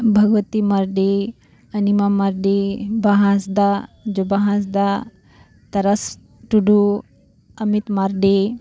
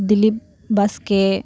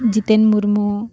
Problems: none marked